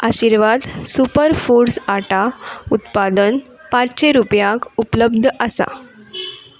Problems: background sounds at intervals